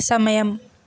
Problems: none marked